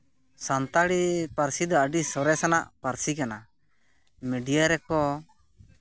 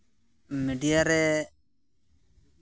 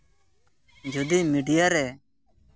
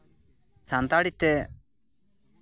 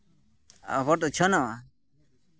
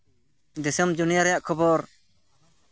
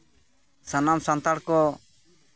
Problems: constant background noise, background conversations at intervals